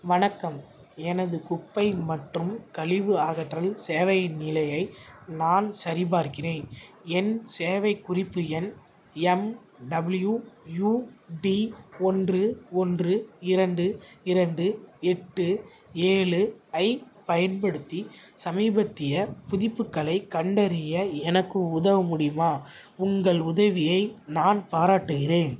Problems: background sounds at intervals